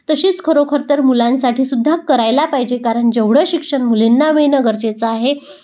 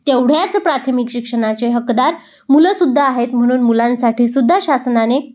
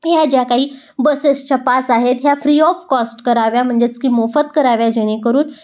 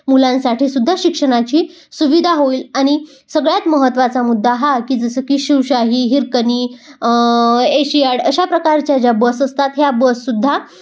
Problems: background sounds at intervals